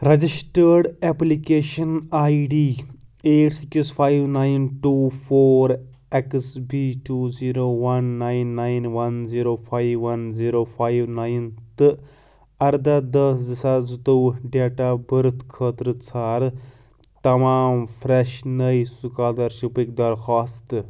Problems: constant background noise